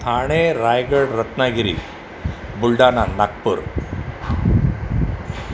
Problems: none marked